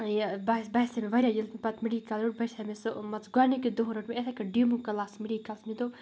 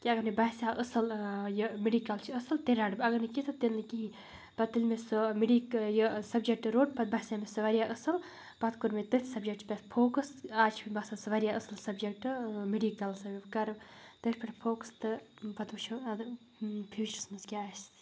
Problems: constant background noise